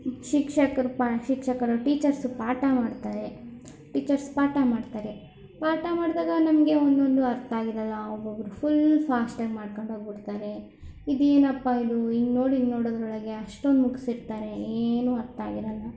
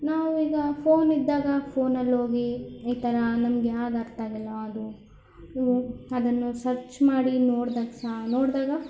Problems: none marked